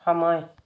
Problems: none marked